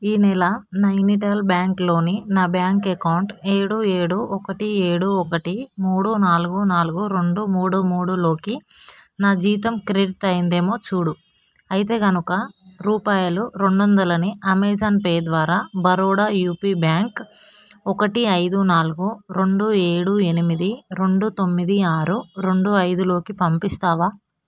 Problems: background sounds at intervals